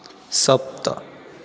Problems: constant background noise